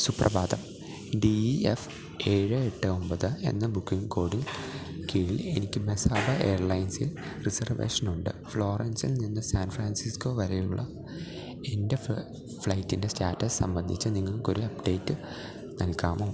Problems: low volume